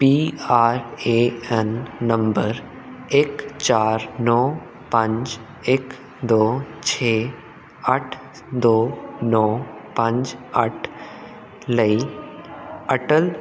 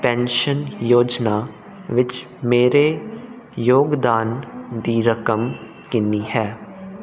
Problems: none marked